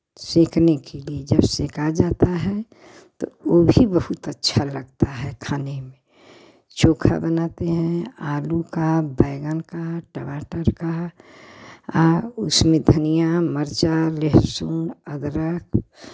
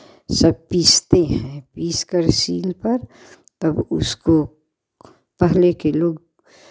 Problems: none marked